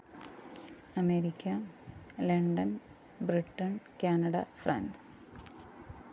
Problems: constant background noise, low volume